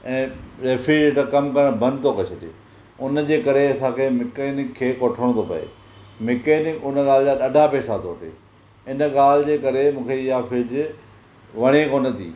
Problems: none marked